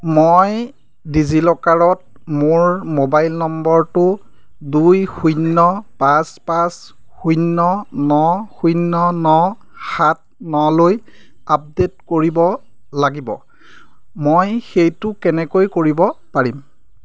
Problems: background sounds at intervals